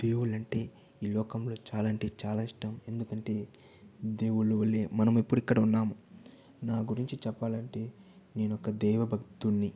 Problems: none marked